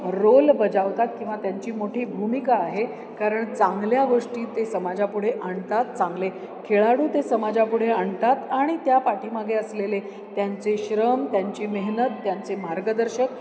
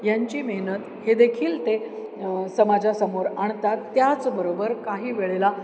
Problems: constant background noise, background conversations at intervals